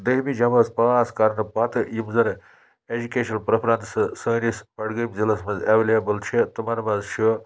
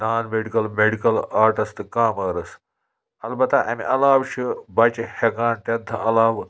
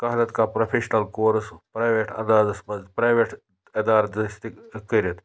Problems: constant background noise